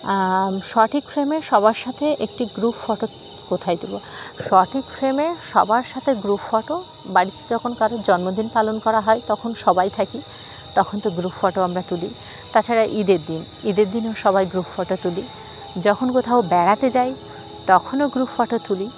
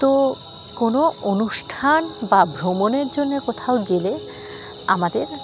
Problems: none marked